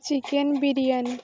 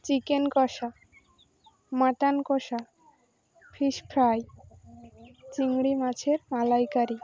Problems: constant background noise